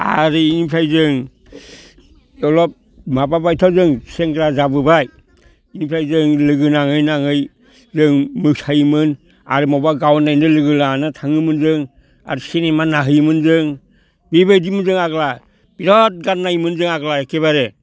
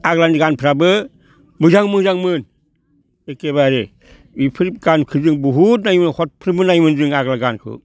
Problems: none marked